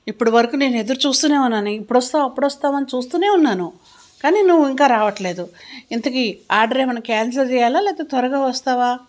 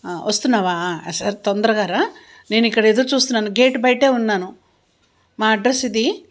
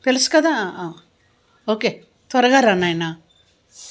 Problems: none marked